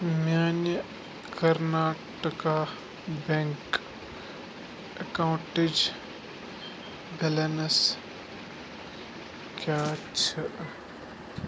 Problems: constant background noise